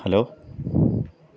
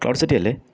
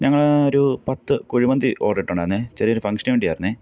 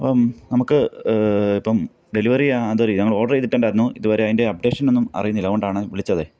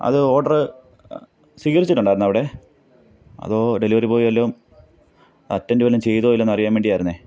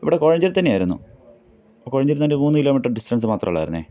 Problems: none marked